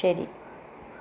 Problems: constant background noise